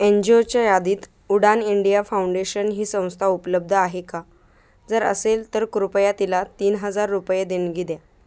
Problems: constant background noise